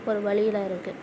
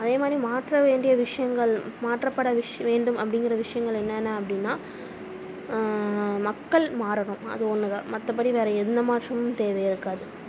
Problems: none marked